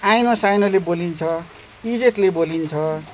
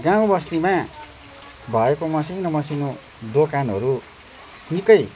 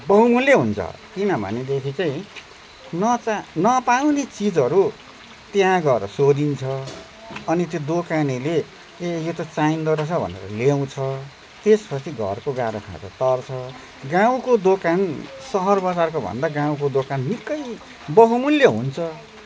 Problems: none marked